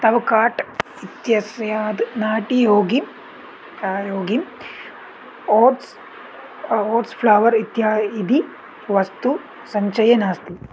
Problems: none marked